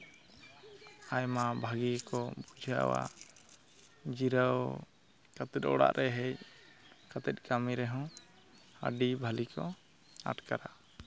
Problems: background sounds at intervals